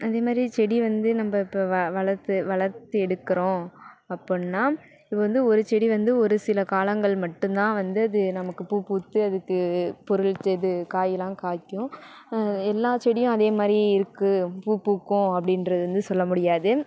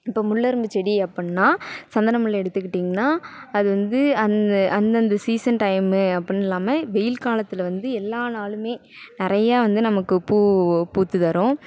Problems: none marked